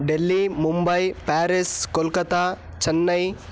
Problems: none marked